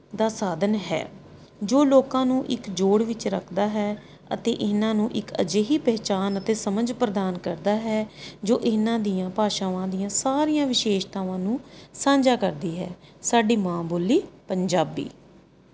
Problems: none marked